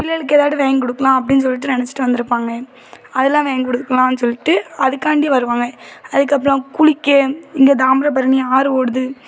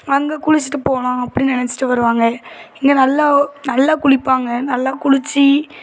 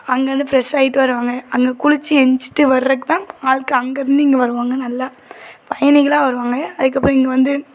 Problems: background sounds at intervals, background conversations at intervals